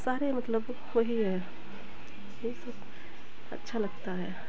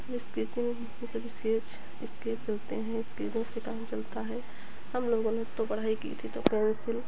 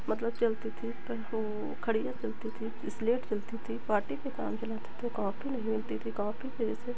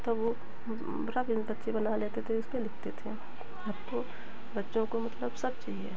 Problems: none marked